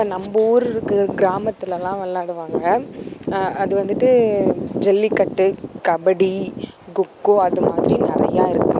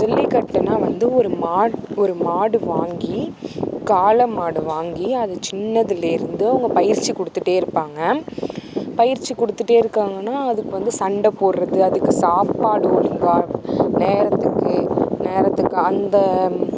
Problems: constant background noise